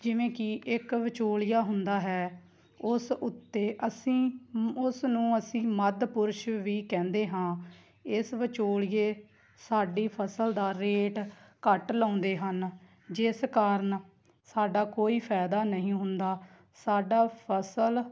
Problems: background sounds at intervals